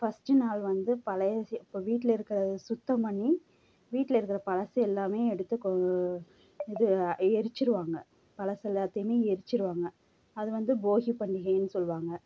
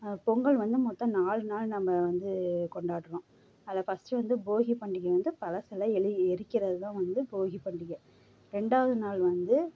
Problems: low volume